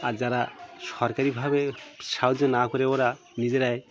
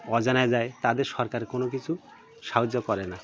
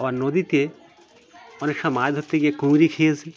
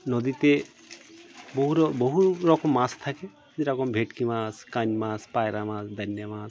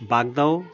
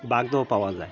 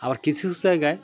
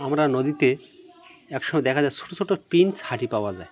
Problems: constant background noise, continuous background conversations